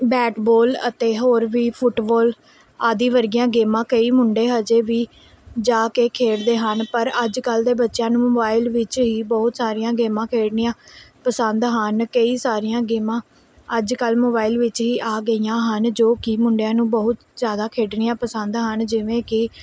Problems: background sounds at intervals